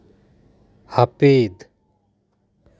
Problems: none marked